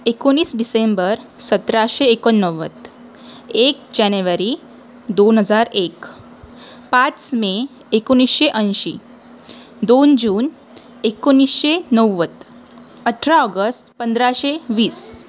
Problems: constant background noise, continuous background conversations